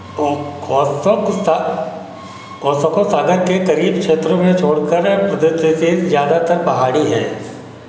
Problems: none marked